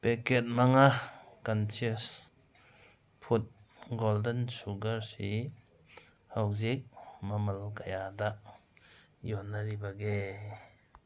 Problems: none marked